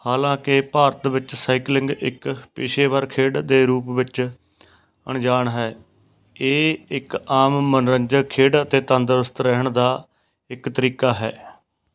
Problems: background sounds at intervals, background conversations at intervals